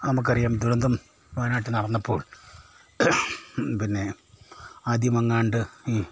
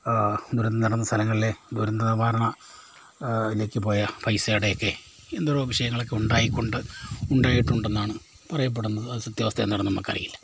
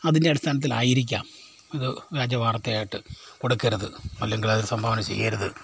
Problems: none marked